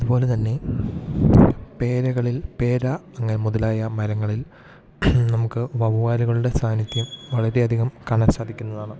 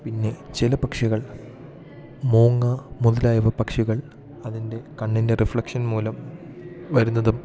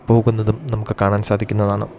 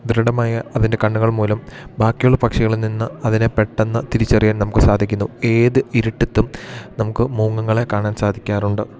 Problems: low volume